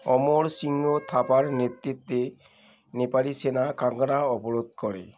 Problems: background sounds at intervals